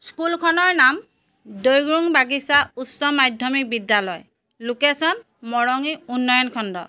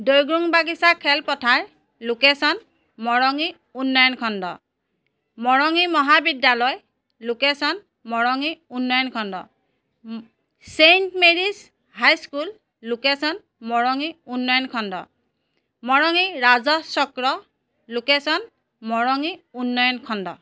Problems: none marked